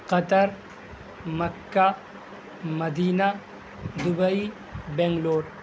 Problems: constant background noise